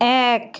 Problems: none marked